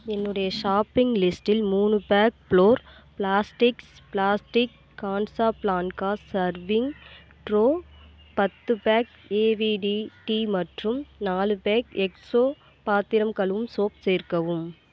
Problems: constant background noise